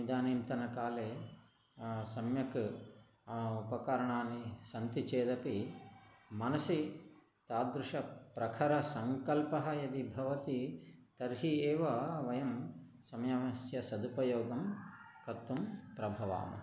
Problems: none marked